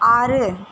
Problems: constant background noise